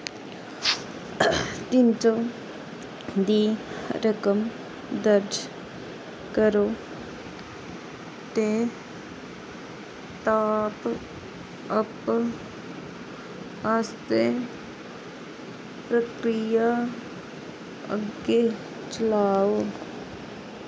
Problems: constant background noise